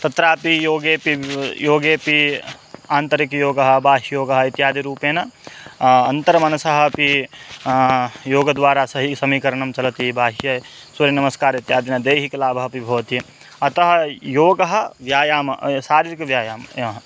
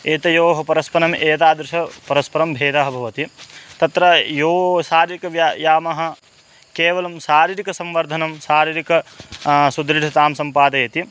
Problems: constant background noise